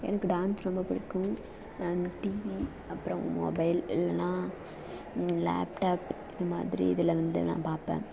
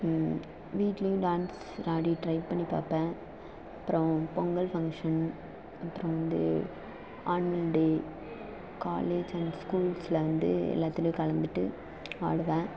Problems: constant background noise, low volume